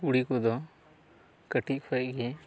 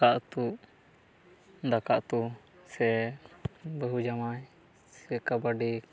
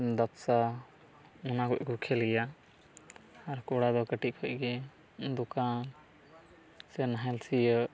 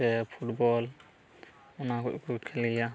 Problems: background sounds at intervals, background conversations at intervals